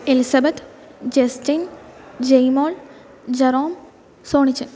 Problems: none marked